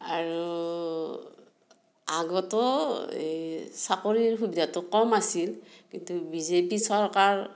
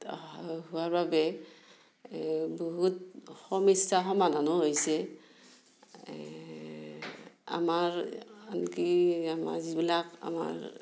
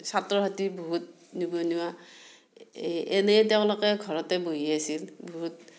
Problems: none marked